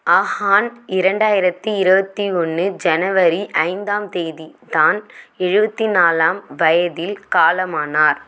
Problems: none marked